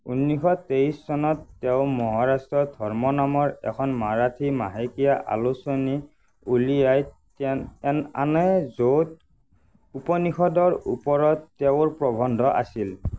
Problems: constant background noise